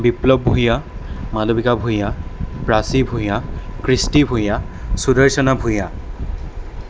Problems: constant background noise